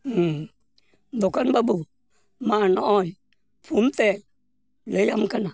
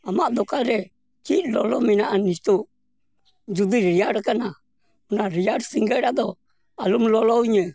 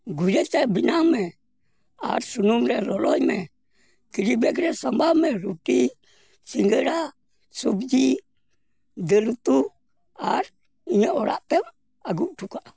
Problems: background sounds at intervals